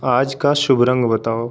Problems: constant background noise